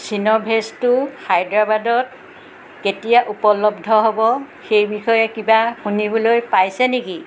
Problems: constant background noise